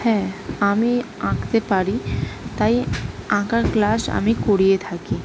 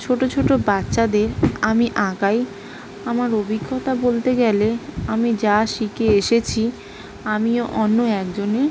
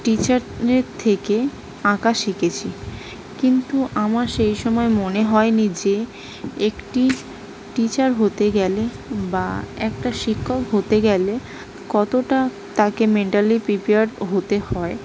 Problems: background sounds at intervals